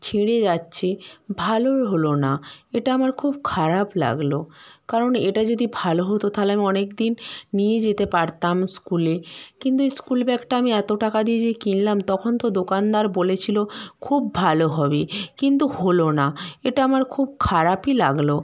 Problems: background sounds at intervals